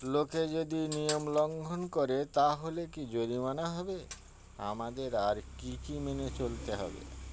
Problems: constant background noise